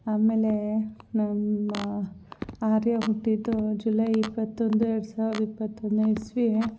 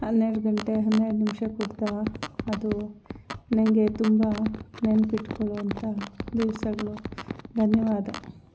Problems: constant background noise